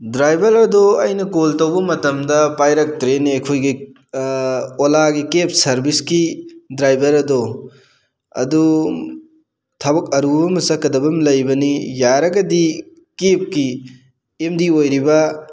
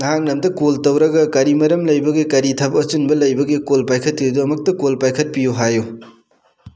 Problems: none marked